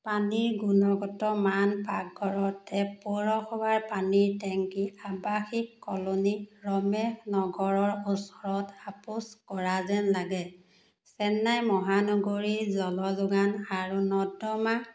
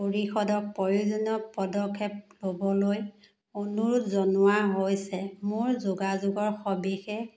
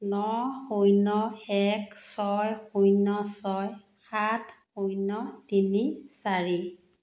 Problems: none marked